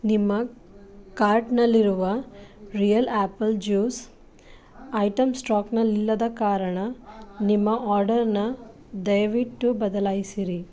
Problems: none marked